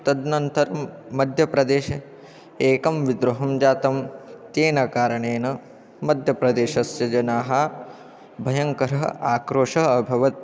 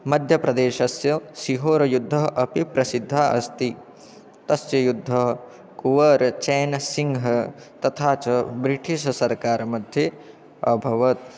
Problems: continuous background conversations